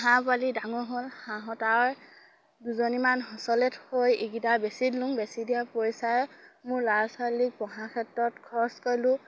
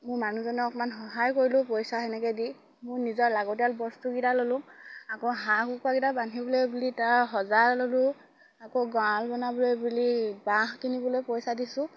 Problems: none marked